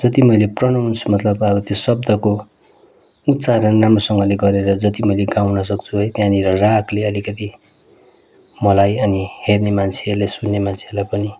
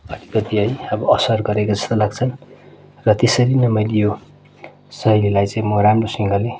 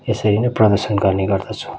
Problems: constant background noise